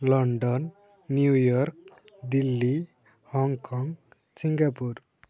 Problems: low volume